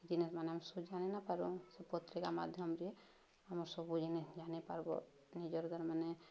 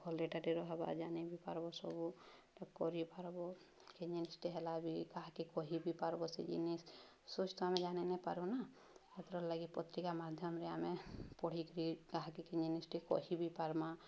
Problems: none marked